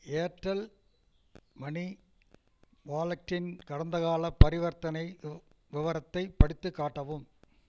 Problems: background sounds at intervals